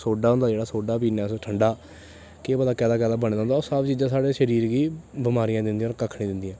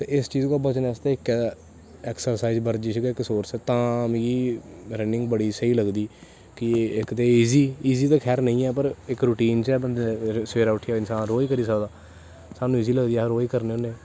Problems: constant background noise